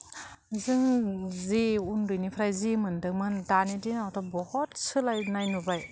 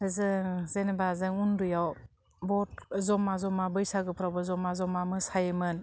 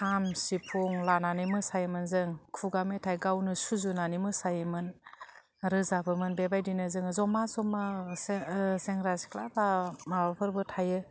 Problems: constant background noise